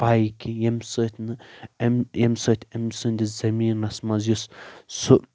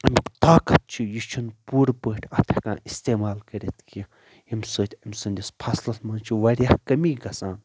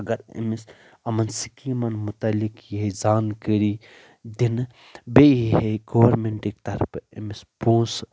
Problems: constant background noise